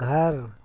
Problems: constant background noise